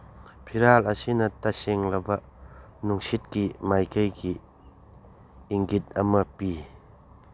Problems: background sounds at intervals